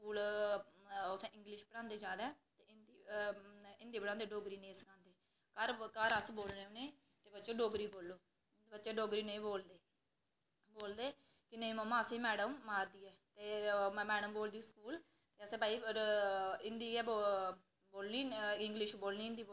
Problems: none marked